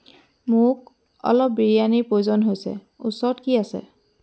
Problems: none marked